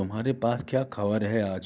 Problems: background sounds at intervals